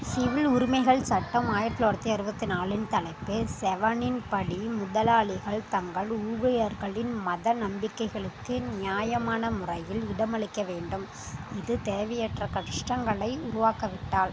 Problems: background sounds at intervals, background conversations at intervals